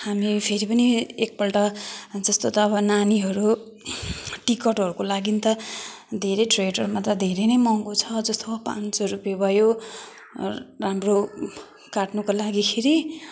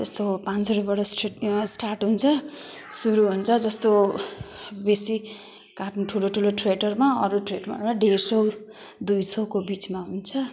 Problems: none marked